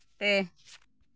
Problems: none marked